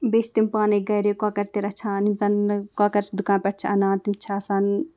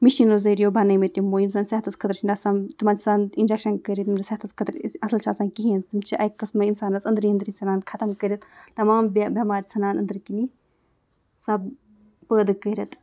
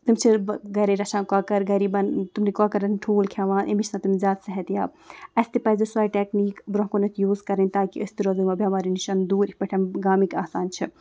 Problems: background sounds at intervals